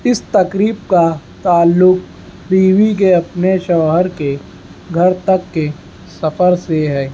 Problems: constant background noise